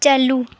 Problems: none marked